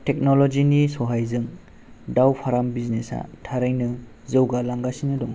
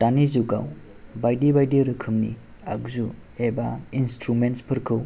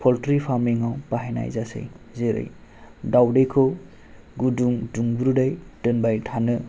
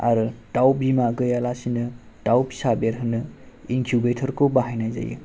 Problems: none marked